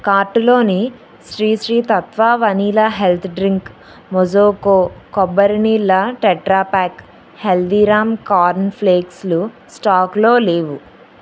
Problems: none marked